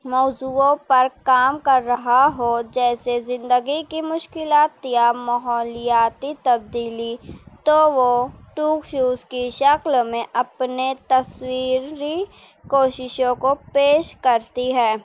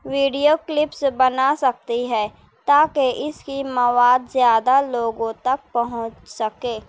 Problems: none marked